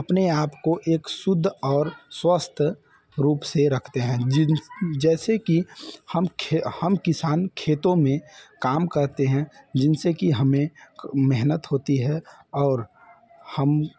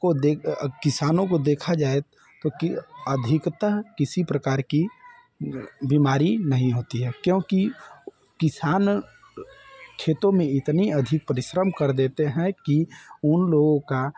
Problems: none marked